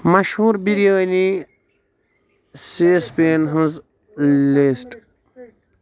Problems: background sounds at intervals, background conversations at intervals